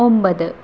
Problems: constant background noise, low volume